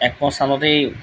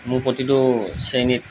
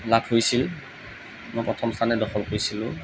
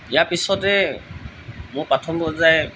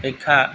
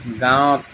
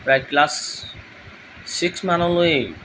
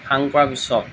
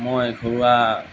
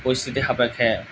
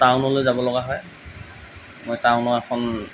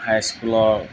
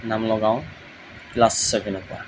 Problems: background sounds at intervals